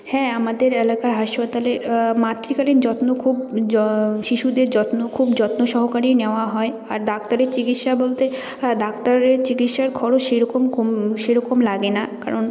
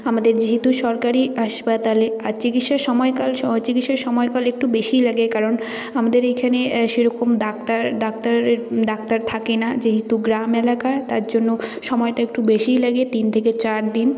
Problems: background sounds at intervals